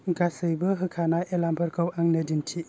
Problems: background sounds at intervals